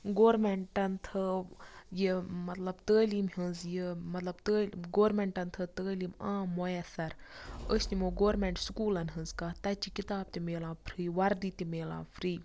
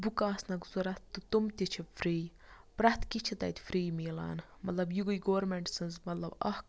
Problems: background sounds at intervals